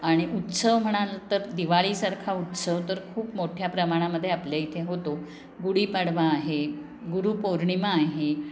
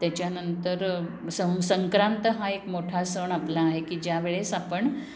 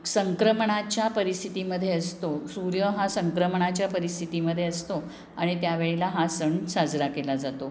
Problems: none marked